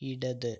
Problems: low volume